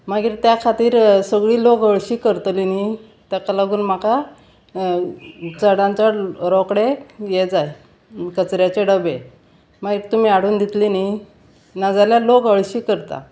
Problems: constant background noise